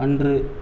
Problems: none marked